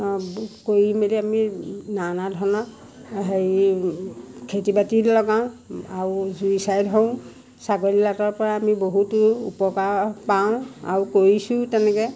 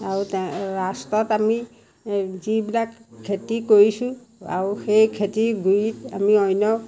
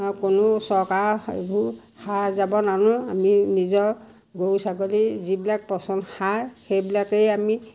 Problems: background sounds at intervals